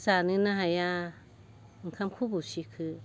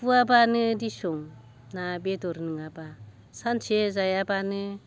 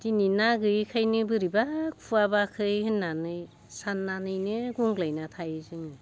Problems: constant background noise